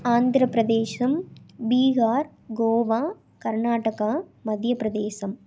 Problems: none marked